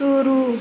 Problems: constant background noise